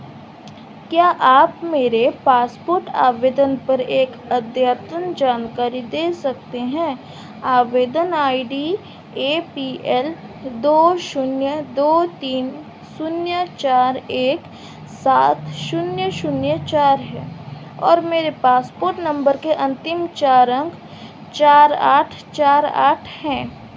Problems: none marked